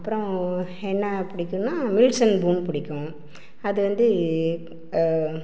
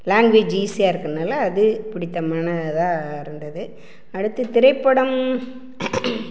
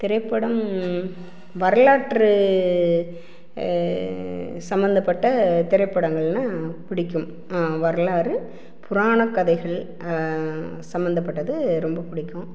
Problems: background sounds at intervals